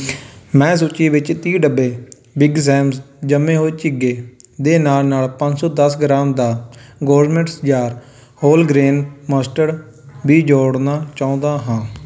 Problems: background sounds at intervals